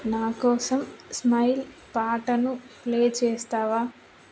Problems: constant background noise